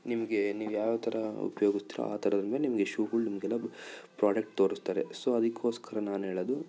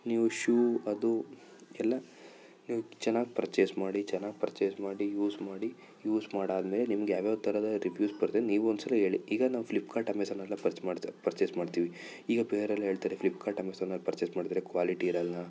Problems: none marked